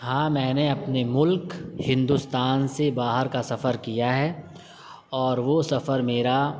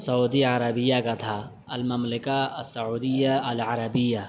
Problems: constant background noise